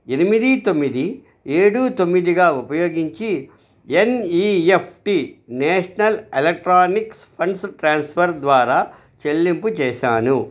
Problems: none marked